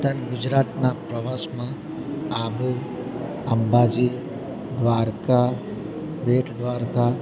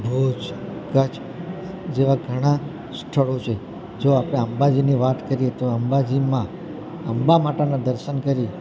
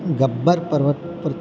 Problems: none marked